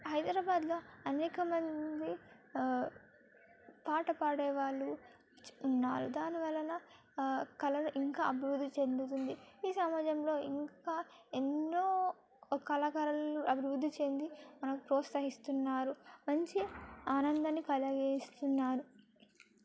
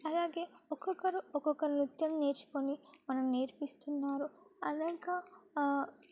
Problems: background sounds at intervals